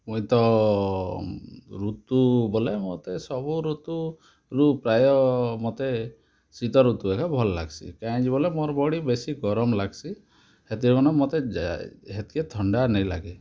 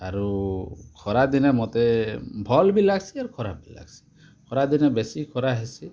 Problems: constant background noise